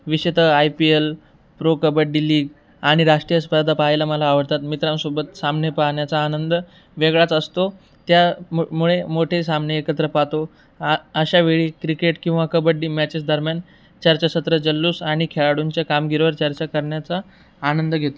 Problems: background sounds at intervals